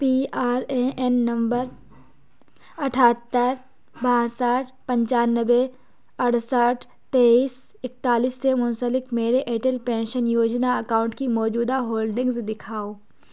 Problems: background sounds at intervals